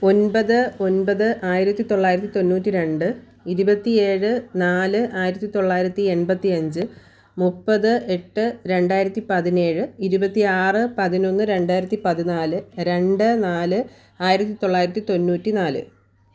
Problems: none marked